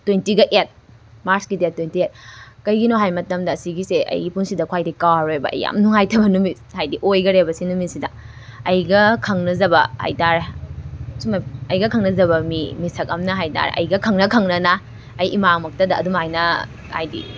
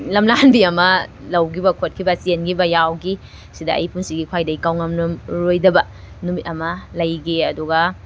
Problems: background sounds at intervals